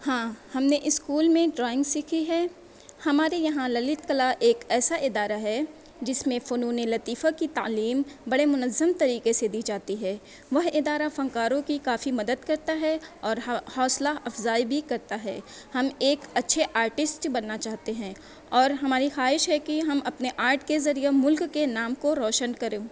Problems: none marked